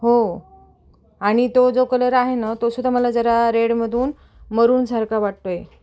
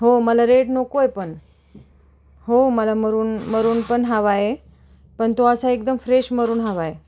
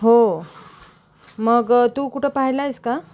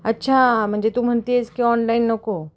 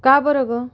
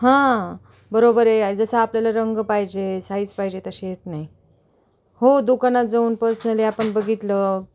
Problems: none marked